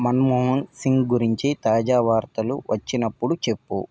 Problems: none marked